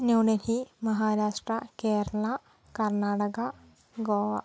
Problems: low volume